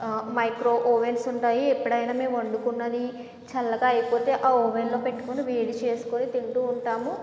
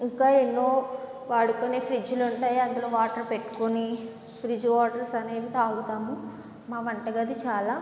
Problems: none marked